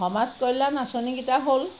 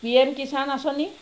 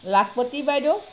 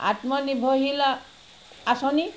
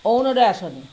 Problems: none marked